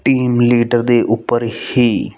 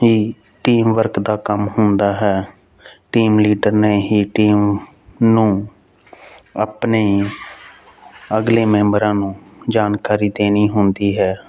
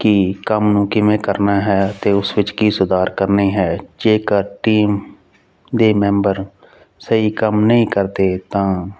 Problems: none marked